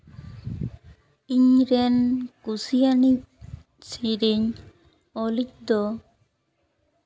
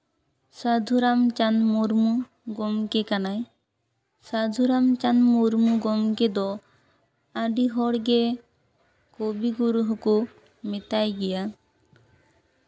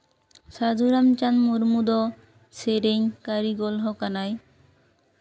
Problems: none marked